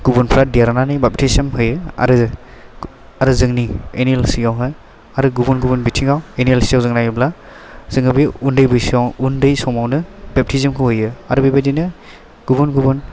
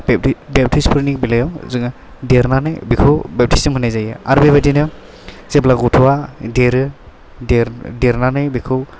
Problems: none marked